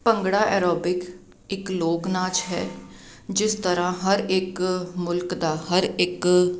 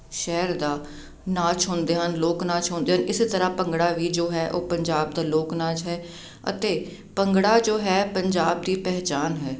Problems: none marked